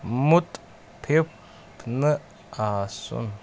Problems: constant background noise